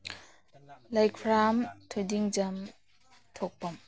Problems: low volume